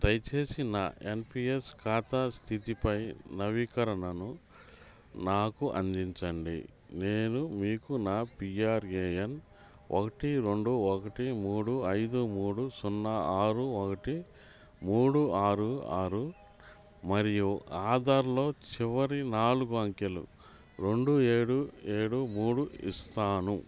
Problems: none marked